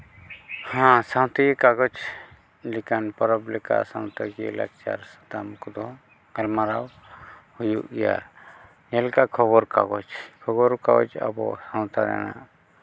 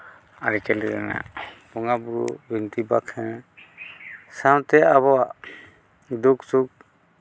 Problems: background sounds at intervals